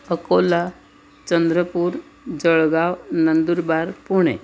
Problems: none marked